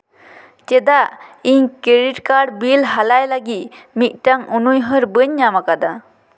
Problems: echo